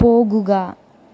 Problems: low volume